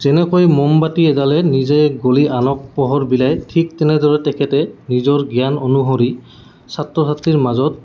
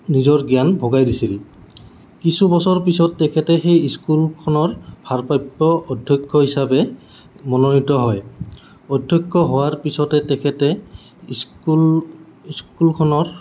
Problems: constant background noise